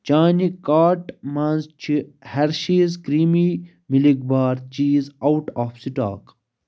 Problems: none marked